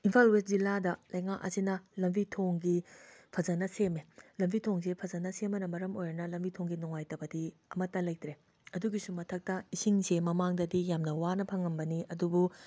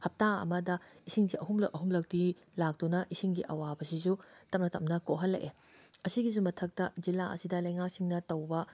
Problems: background sounds at intervals